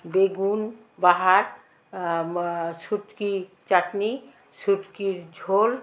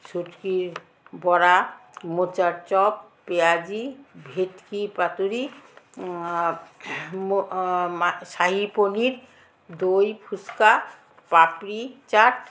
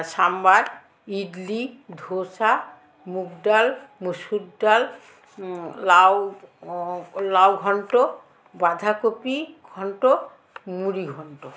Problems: constant background noise, continuous background conversations